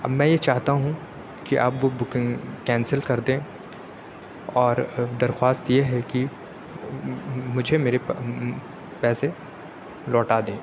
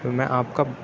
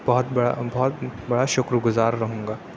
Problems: constant background noise